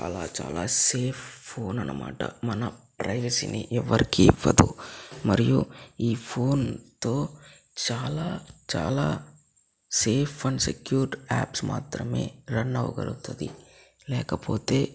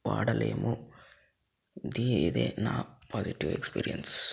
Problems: low volume